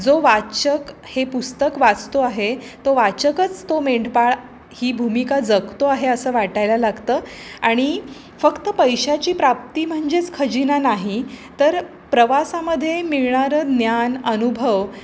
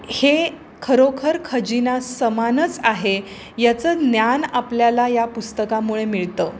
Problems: constant background noise